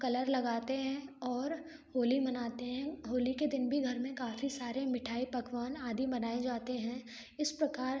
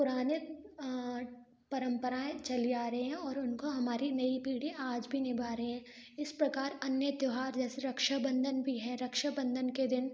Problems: background sounds at intervals